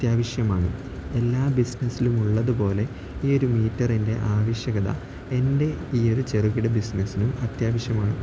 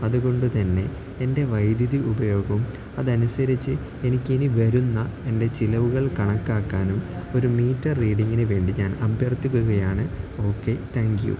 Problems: constant background noise, low volume